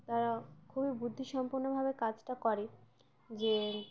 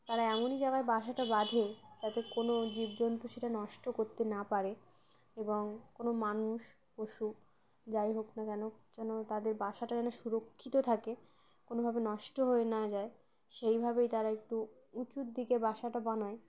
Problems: background sounds at intervals